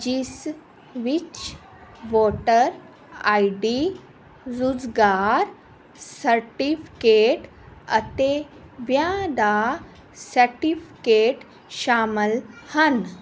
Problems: none marked